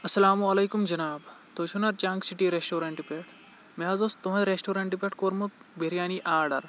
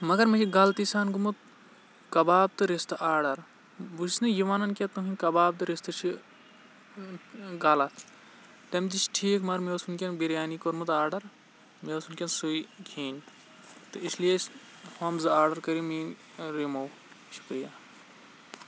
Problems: none marked